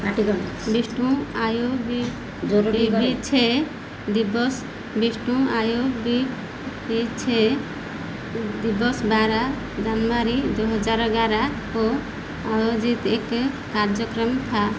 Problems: none marked